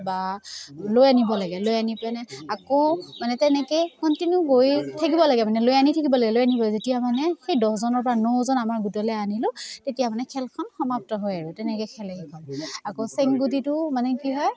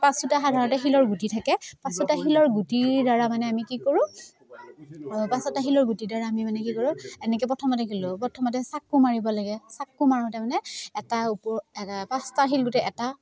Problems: constant background noise